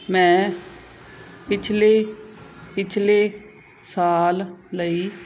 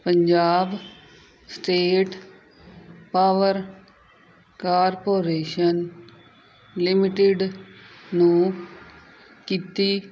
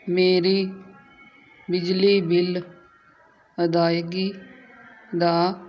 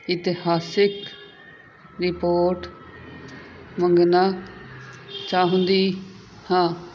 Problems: constant background noise